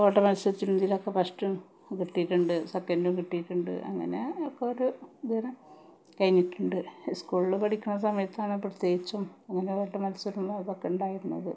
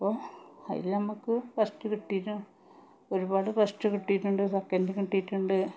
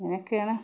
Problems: none marked